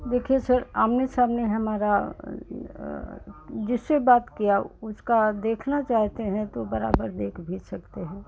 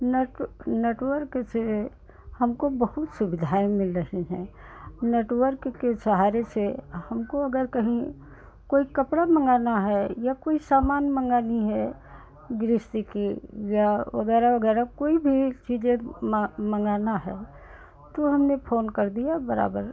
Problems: constant background noise